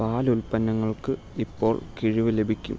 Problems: low volume